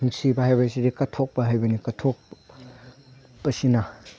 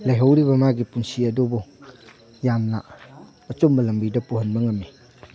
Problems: none marked